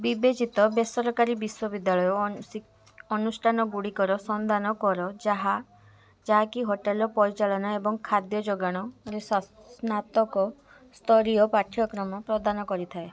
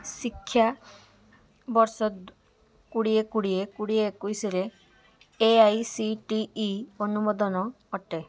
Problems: constant background noise, continuous background conversations